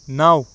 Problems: background sounds at intervals